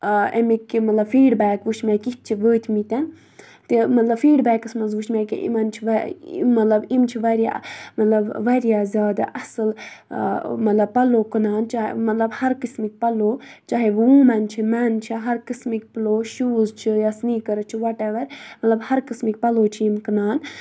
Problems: none marked